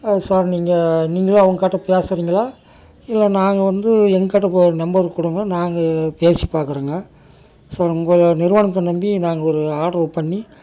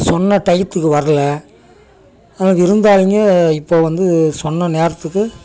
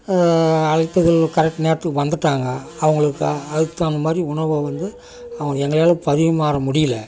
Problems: constant background noise